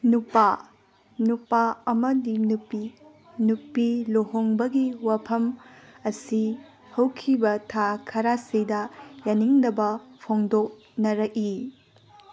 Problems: background sounds at intervals, background conversations at intervals